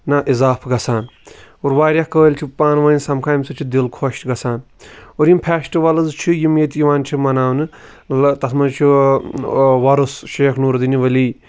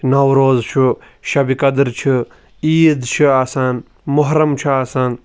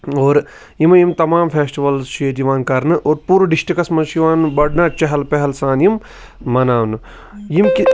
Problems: none marked